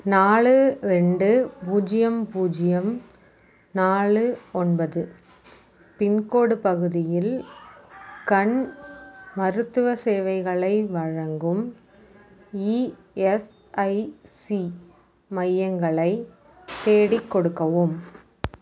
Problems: constant background noise